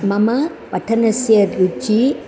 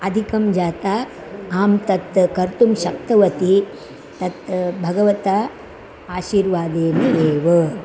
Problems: constant background noise, continuous background conversations